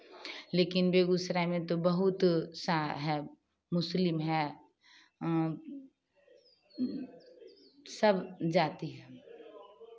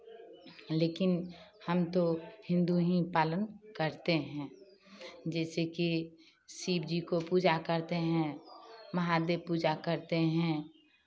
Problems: constant background noise